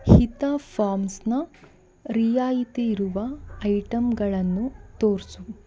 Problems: background conversations at intervals